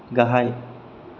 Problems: none marked